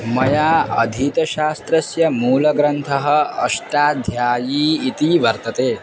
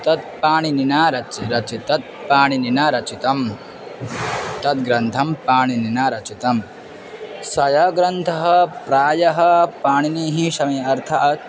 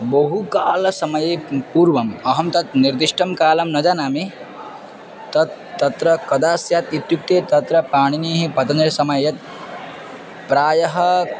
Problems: constant background noise, background conversations at intervals